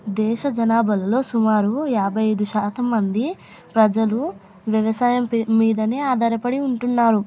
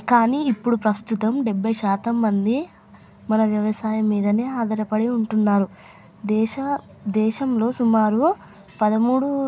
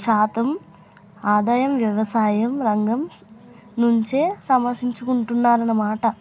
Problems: none marked